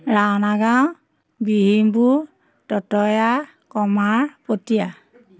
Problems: constant background noise